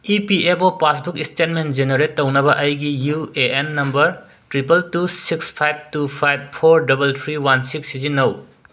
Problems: background sounds at intervals